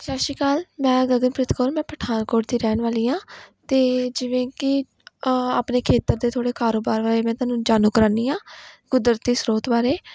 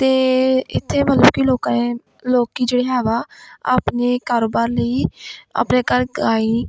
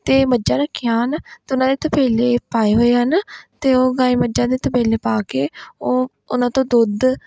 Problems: none marked